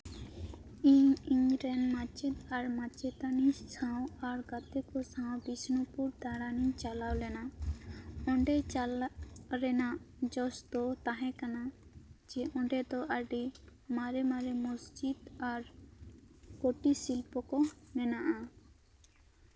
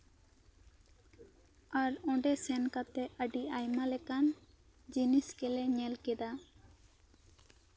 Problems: background sounds at intervals